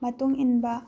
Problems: low volume